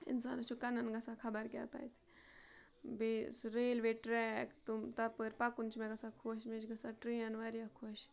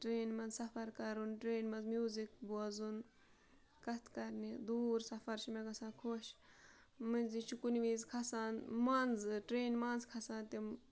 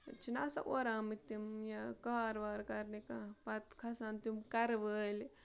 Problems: background sounds at intervals, low volume